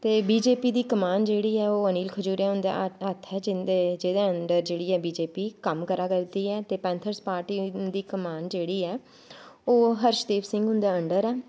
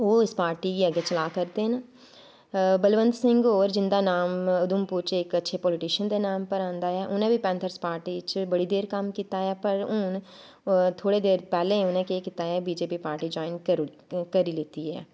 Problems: background sounds at intervals